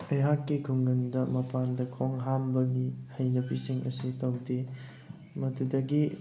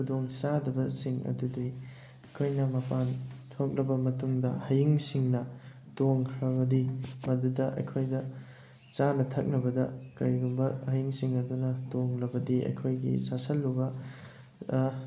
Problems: background sounds at intervals